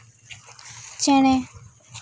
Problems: constant background noise